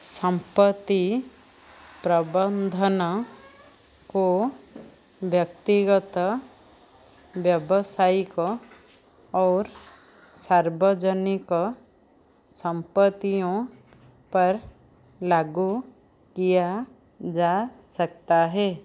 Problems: none marked